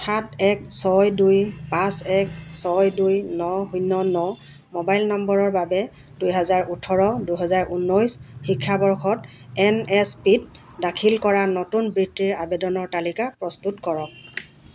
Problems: constant background noise